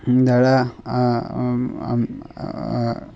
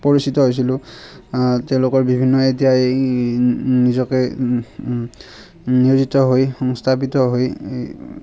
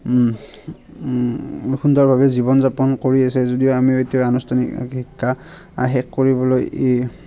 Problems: constant background noise